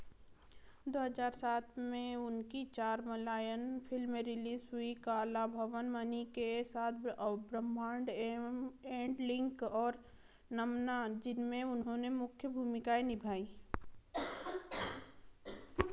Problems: background sounds at intervals